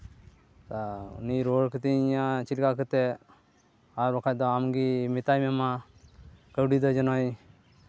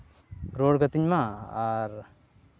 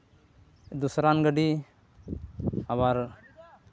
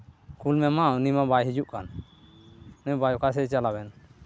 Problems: background sounds at intervals